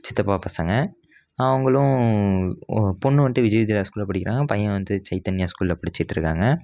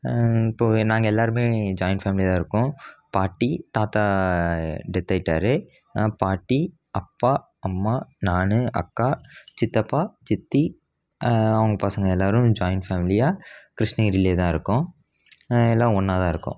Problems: none marked